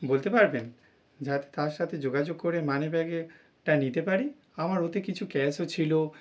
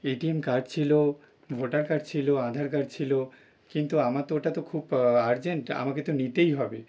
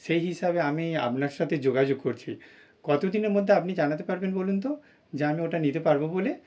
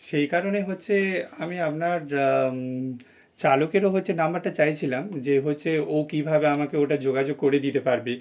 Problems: none marked